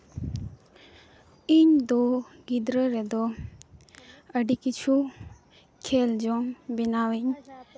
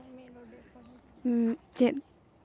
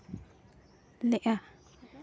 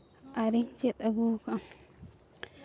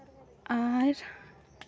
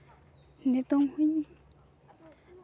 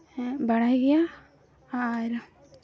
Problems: none marked